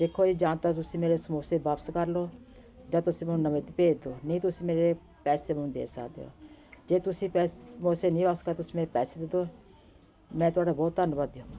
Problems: none marked